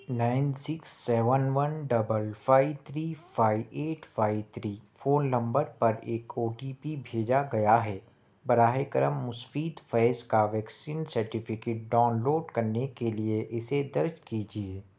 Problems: none marked